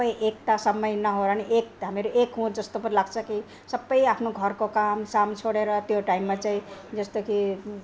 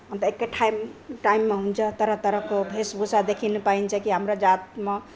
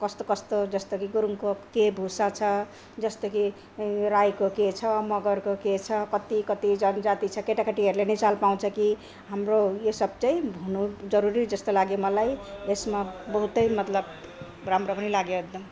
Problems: none marked